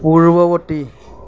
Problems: none marked